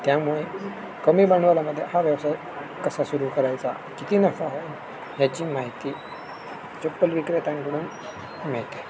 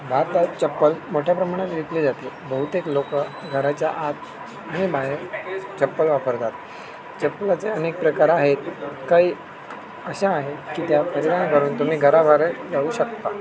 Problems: constant background noise